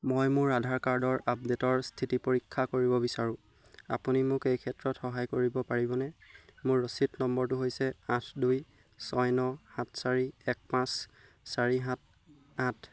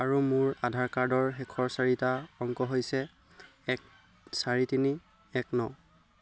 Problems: constant background noise